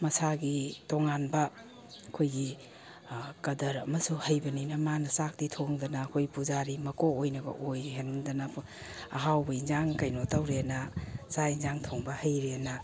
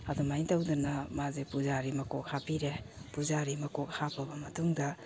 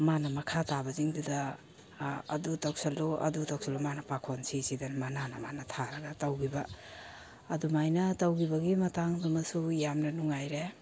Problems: none marked